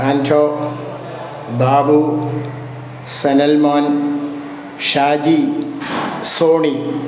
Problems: constant background noise